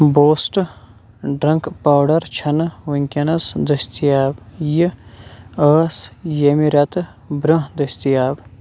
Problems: none marked